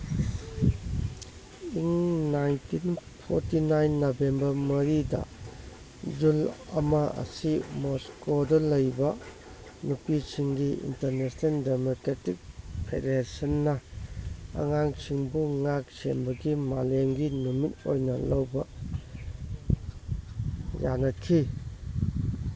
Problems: background sounds at intervals